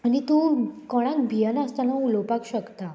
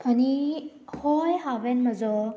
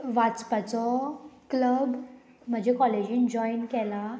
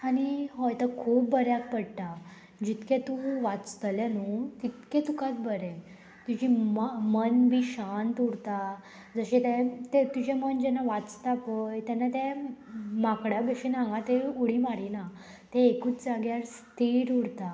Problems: constant background noise